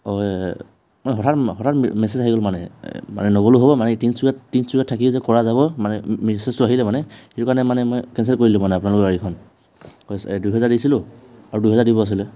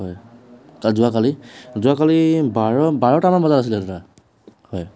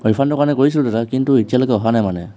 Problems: background sounds at intervals, background conversations at intervals